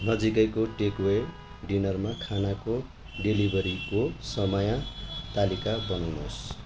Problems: constant background noise